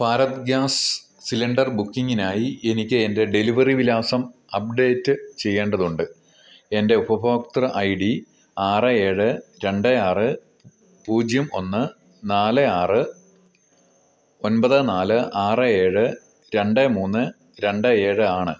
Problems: none marked